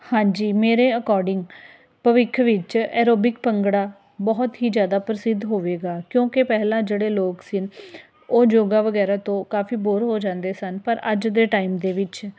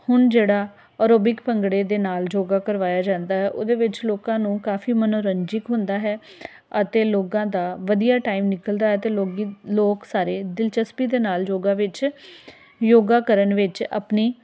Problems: constant background noise